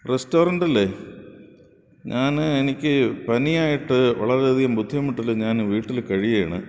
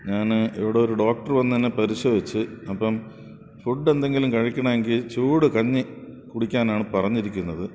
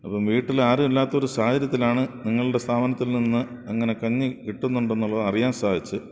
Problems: background sounds at intervals